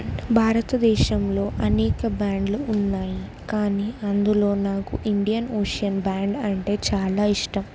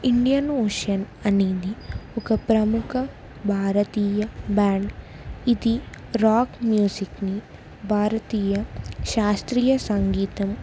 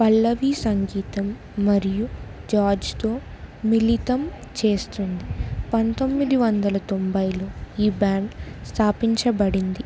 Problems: constant background noise, background conversations at intervals